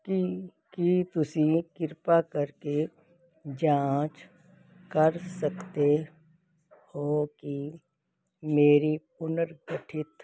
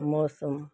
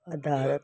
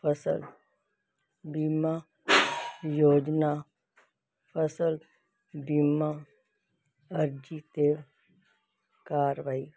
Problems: constant background noise